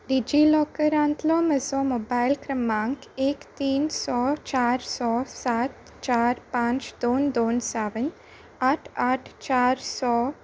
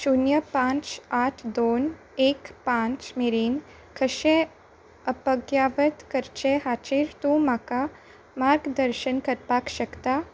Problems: none marked